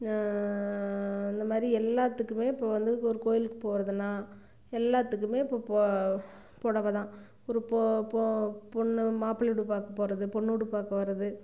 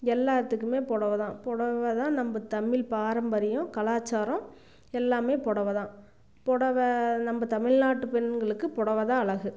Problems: none marked